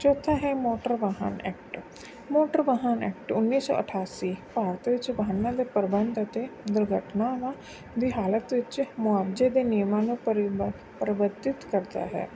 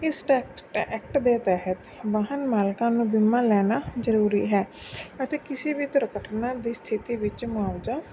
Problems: constant background noise